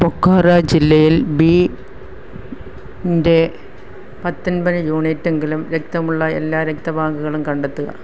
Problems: background sounds at intervals